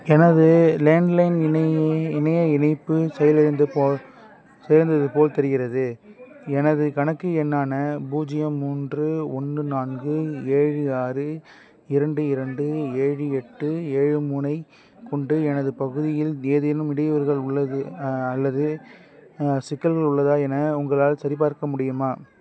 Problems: background conversations at intervals